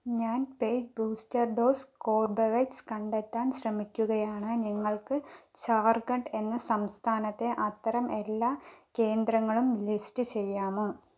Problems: none marked